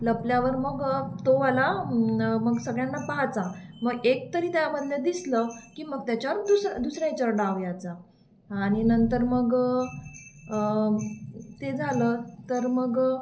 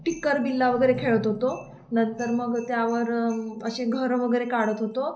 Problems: constant background noise